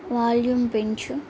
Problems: constant background noise